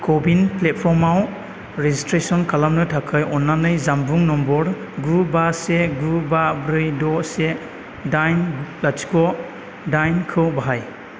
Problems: constant background noise